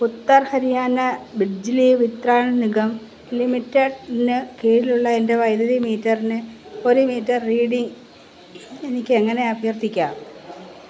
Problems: constant background noise